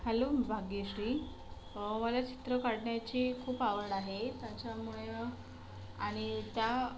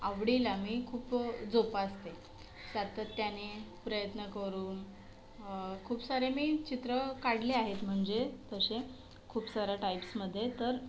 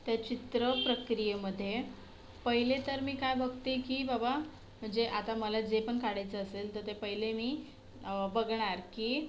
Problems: background sounds at intervals